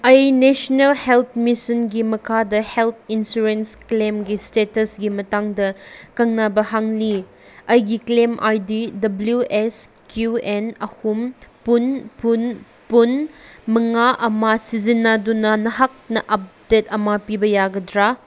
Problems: background sounds at intervals